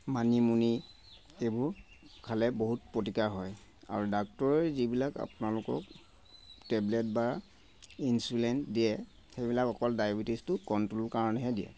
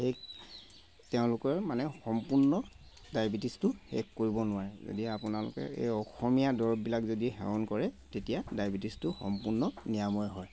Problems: constant background noise